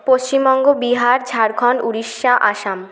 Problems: constant background noise, continuous background conversations